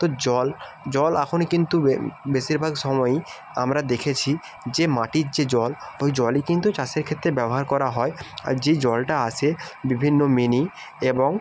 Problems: background sounds at intervals